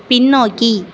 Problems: none marked